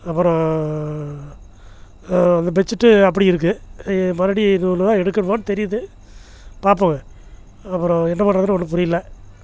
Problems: none marked